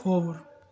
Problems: background sounds at intervals